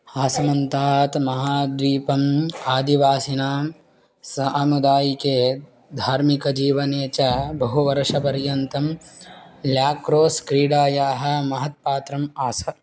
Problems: constant background noise